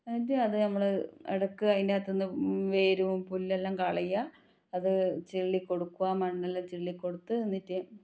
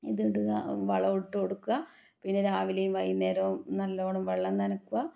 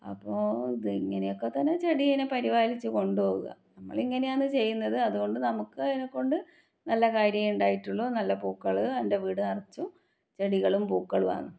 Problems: low volume